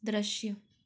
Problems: background sounds at intervals